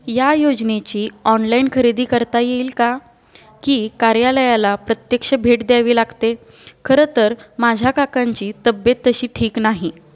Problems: none marked